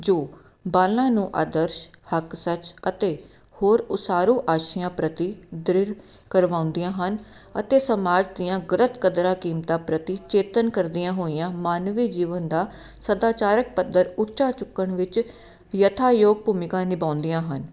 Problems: none marked